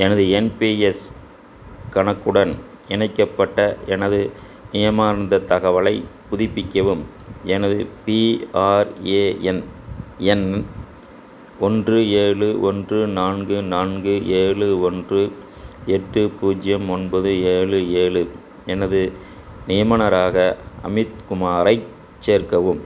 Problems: constant background noise, background conversations at intervals